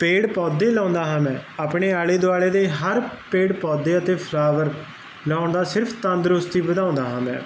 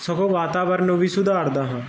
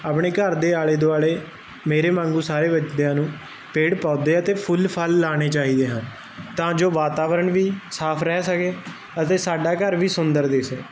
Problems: constant background noise